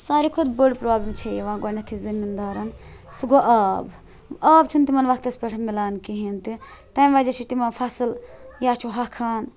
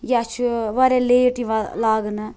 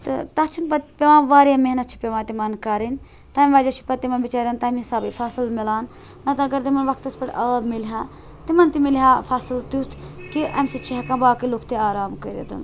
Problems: constant background noise